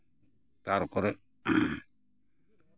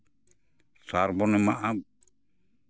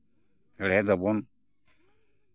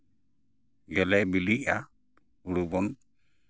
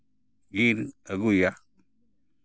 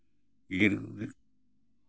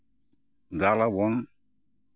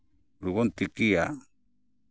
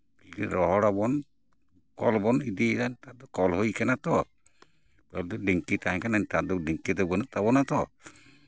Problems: background sounds at intervals, background conversations at intervals